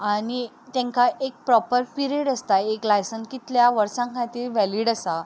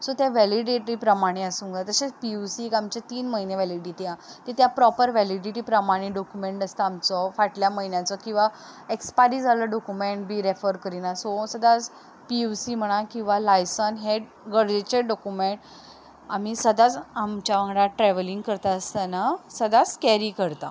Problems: background sounds at intervals